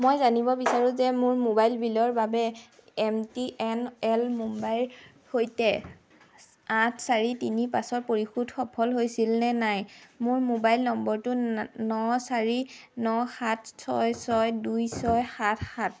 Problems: constant background noise